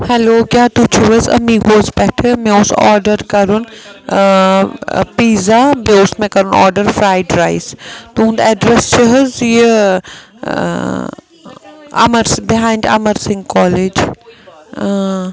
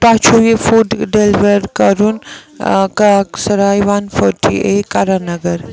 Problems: continuous background conversations